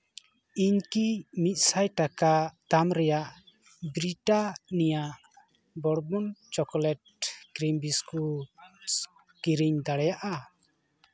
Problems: background conversations at intervals